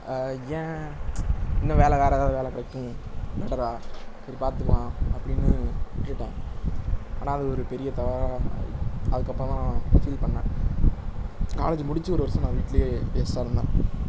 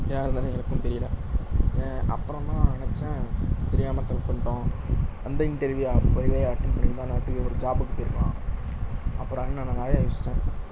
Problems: constant background noise